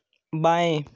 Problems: none marked